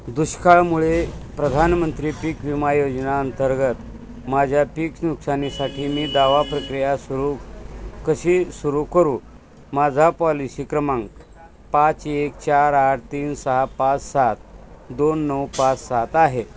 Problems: constant background noise, continuous background conversations